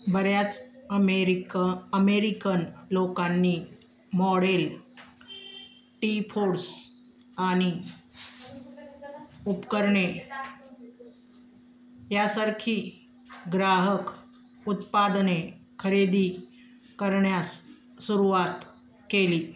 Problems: constant background noise, continuous background conversations